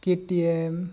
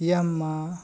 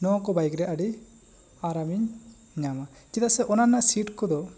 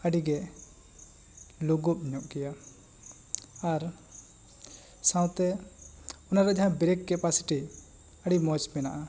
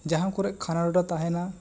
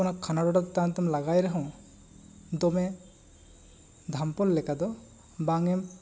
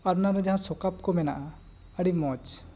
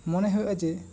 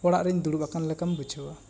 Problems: constant background noise, background conversations at intervals